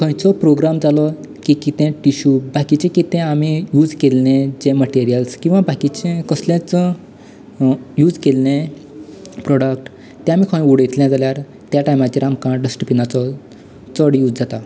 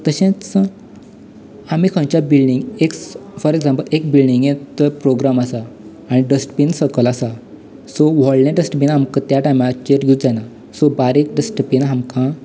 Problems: none marked